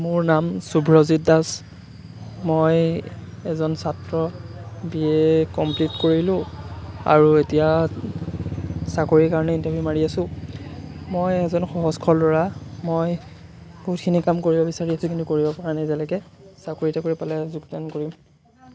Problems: constant background noise